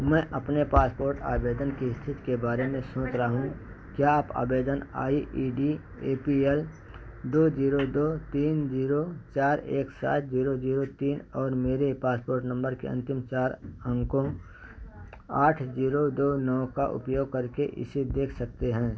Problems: none marked